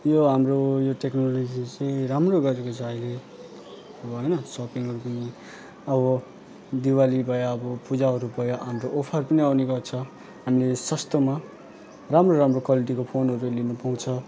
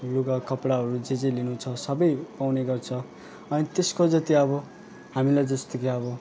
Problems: none marked